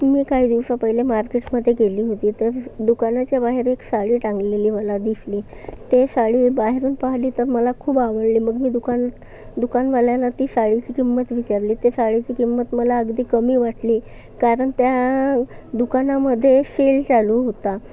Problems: constant background noise, background conversations at intervals